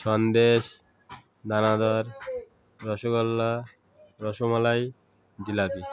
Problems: constant background noise, continuous background conversations